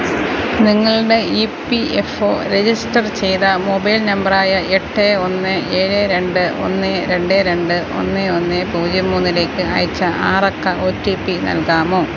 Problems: constant background noise